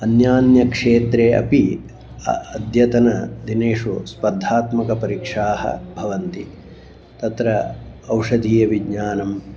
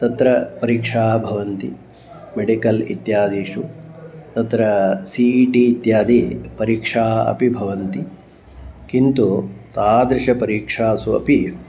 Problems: background sounds at intervals